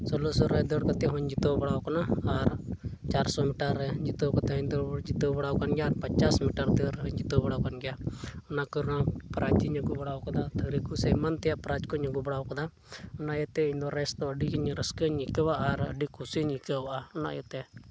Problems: constant background noise